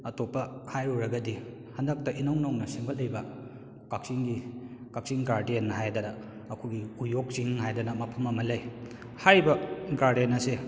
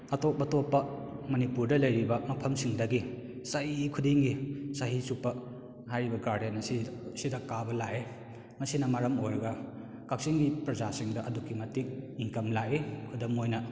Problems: echo